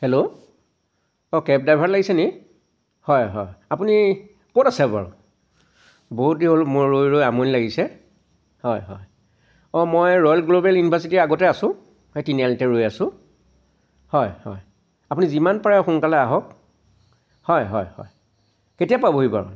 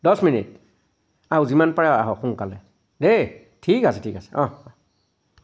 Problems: constant background noise